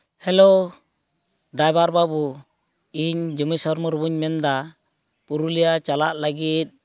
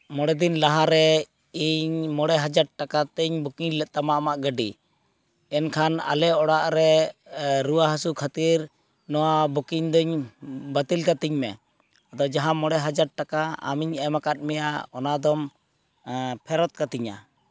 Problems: none marked